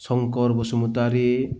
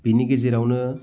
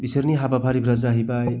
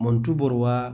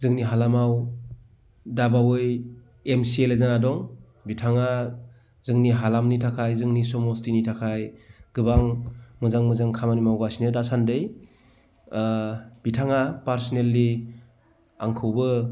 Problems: none marked